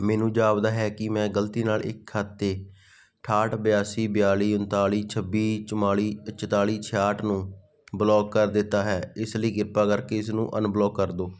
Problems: background sounds at intervals